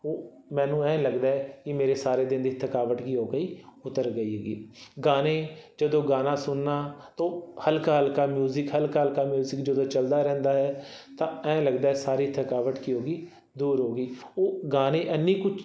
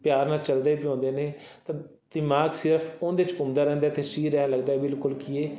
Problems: background sounds at intervals